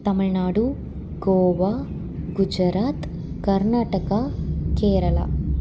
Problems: none marked